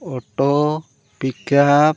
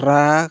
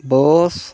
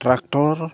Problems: background sounds at intervals